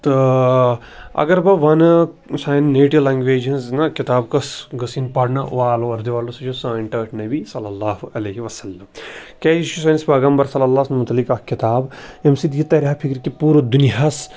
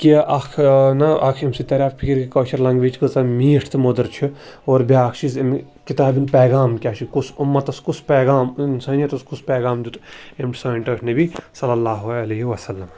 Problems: background sounds at intervals